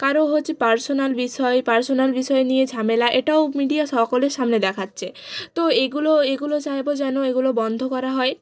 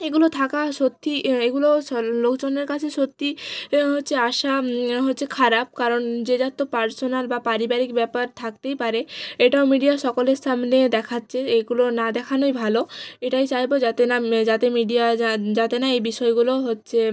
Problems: background sounds at intervals